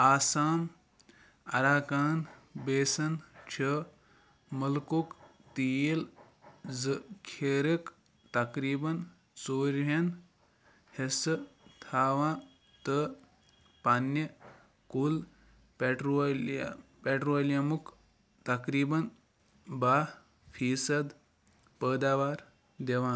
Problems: none marked